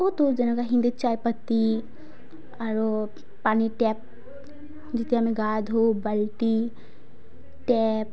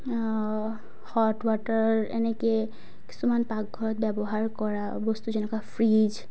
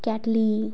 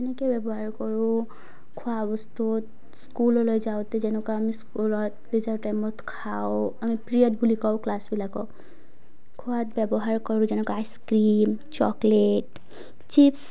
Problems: low volume